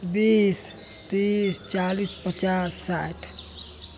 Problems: none marked